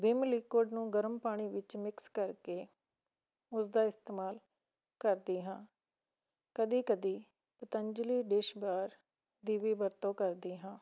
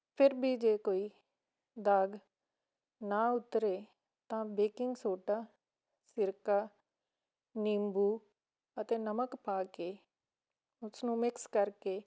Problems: none marked